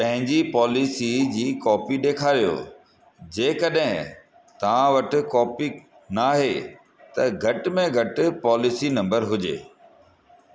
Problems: constant background noise, echo